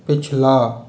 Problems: constant background noise, echo